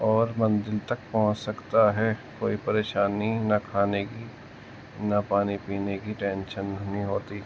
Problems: constant background noise